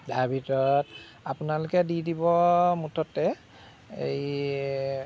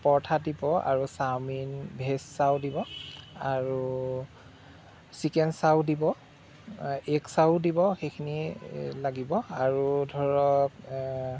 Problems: background sounds at intervals